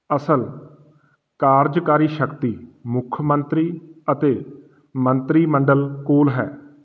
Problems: none marked